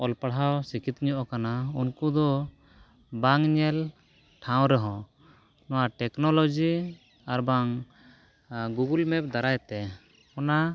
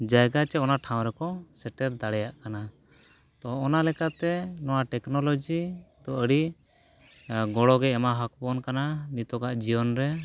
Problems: none marked